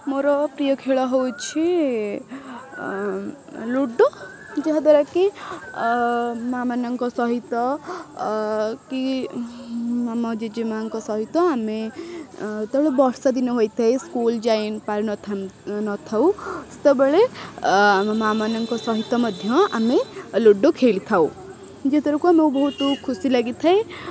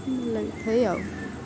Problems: background sounds at intervals